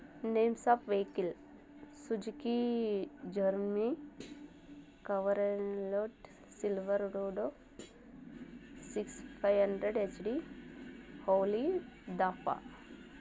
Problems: constant background noise